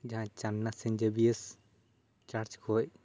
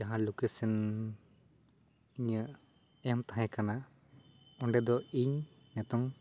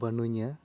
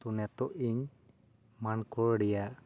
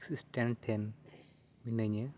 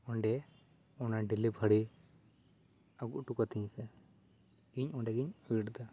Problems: none marked